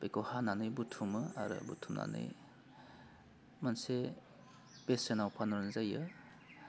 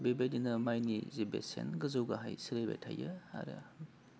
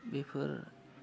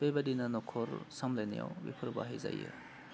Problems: constant background noise